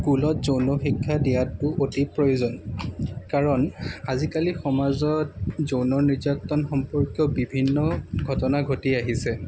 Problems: none marked